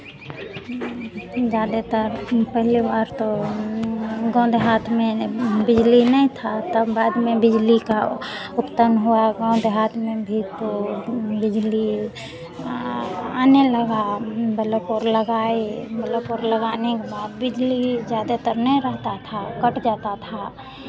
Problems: none marked